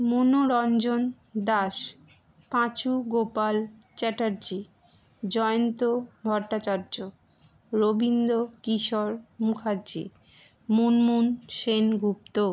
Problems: none marked